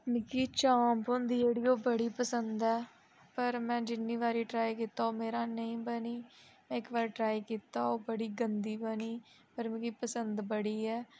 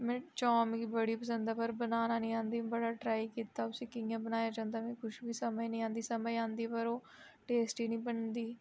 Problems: low volume